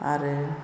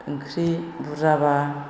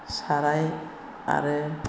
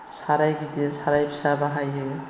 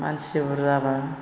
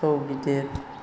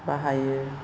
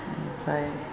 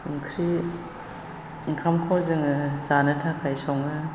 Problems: constant background noise